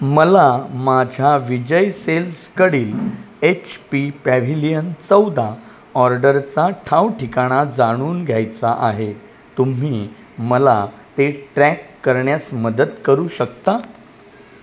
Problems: none marked